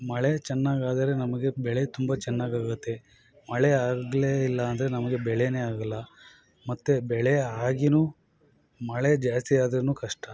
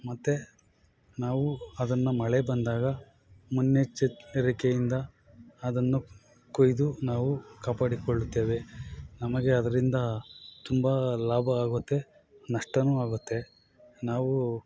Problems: background sounds at intervals